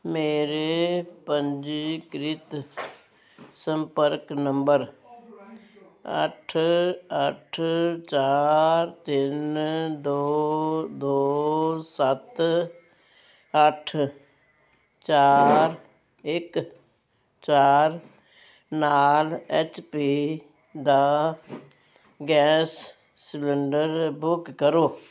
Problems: constant background noise